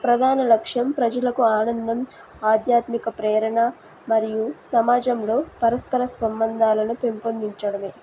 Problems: constant background noise